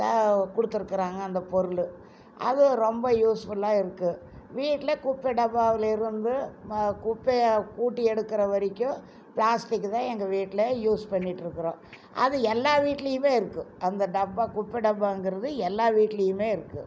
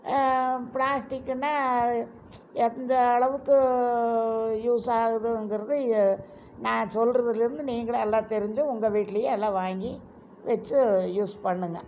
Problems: none marked